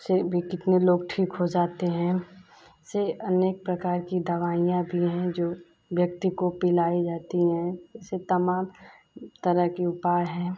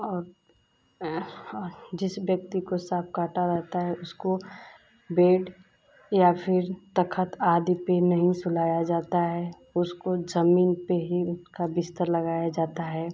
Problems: constant background noise